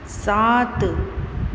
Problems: constant background noise